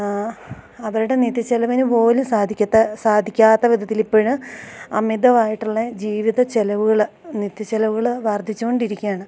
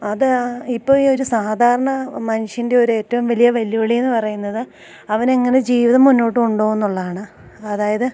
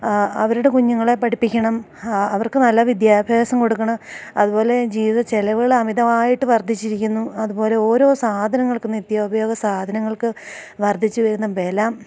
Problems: constant background noise, low volume